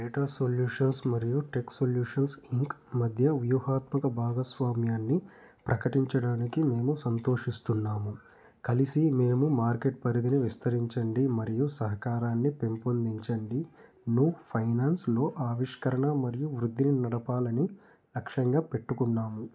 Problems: background sounds at intervals